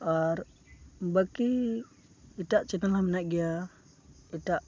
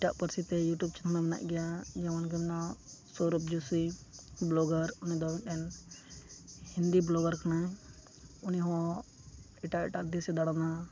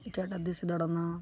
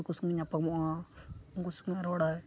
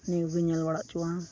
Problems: constant background noise